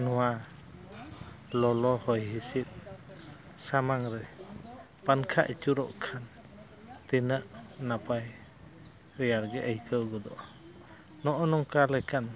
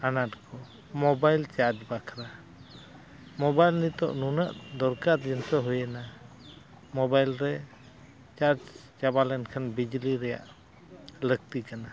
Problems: constant background noise, background conversations at intervals